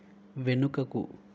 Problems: constant background noise